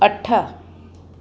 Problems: constant background noise